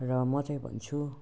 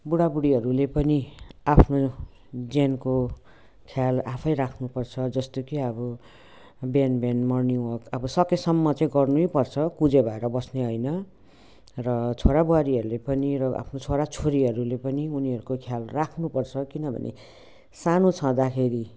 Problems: background sounds at intervals, background conversations at intervals